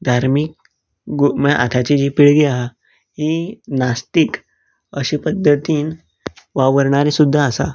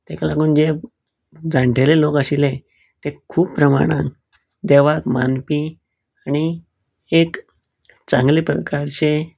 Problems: none marked